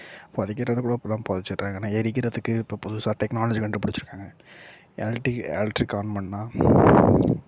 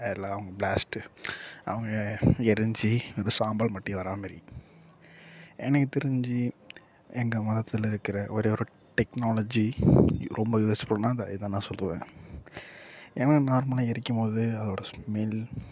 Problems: low volume